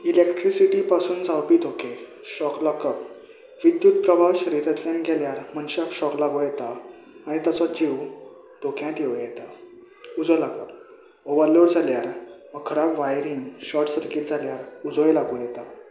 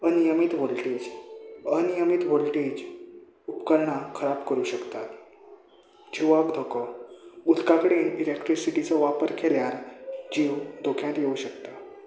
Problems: none marked